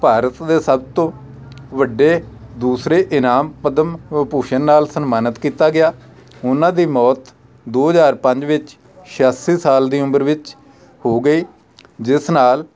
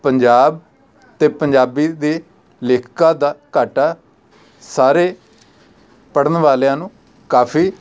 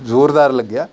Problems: background conversations at intervals